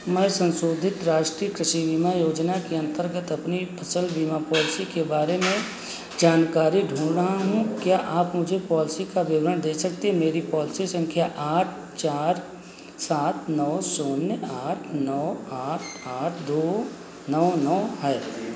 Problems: constant background noise